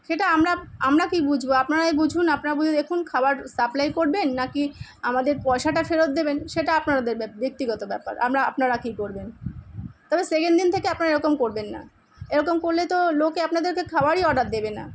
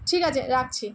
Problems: none marked